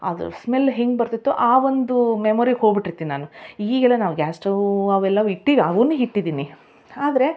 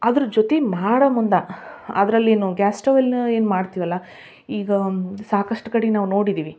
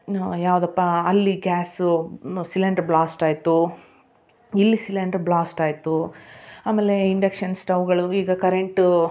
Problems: none marked